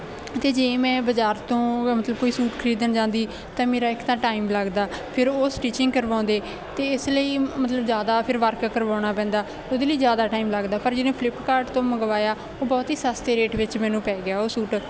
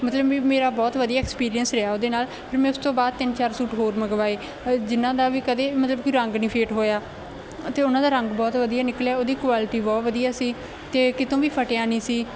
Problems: background sounds at intervals